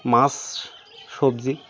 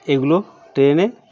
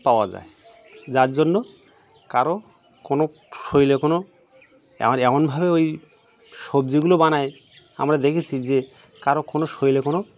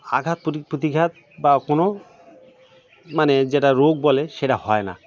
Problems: background sounds at intervals, background conversations at intervals